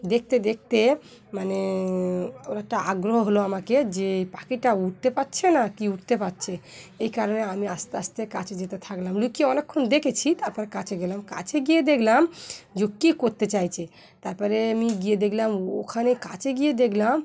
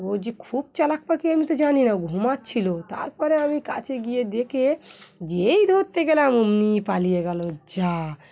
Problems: continuous background conversations